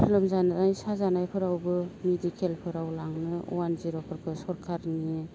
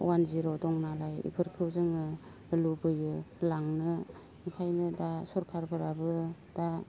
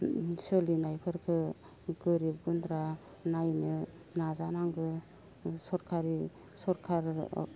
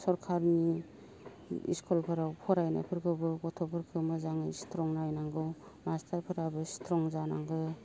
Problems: background sounds at intervals, low volume